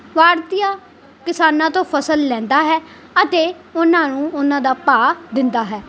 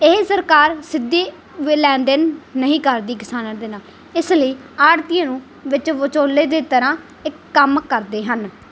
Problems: background sounds at intervals